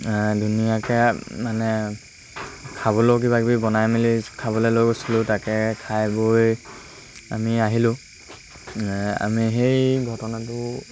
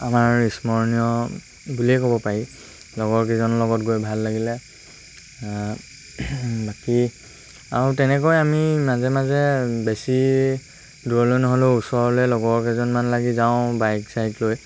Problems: constant background noise